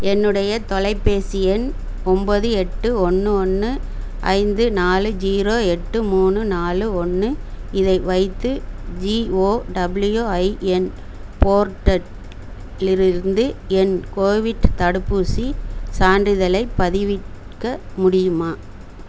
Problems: constant background noise